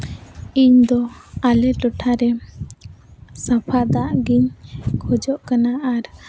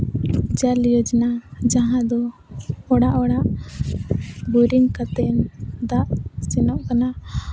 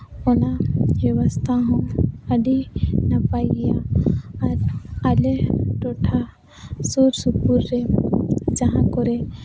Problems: none marked